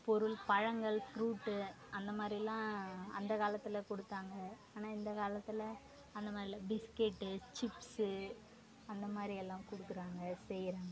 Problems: background conversations at intervals, low volume